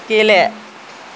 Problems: constant background noise, low volume